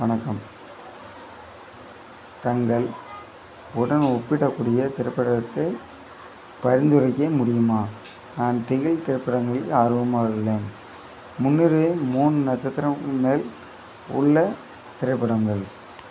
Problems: background sounds at intervals